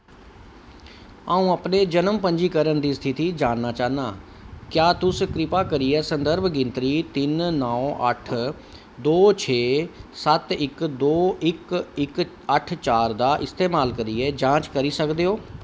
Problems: none marked